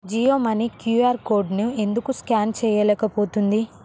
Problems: constant background noise